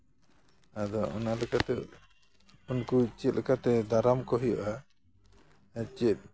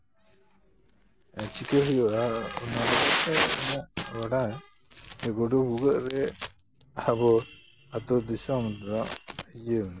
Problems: none marked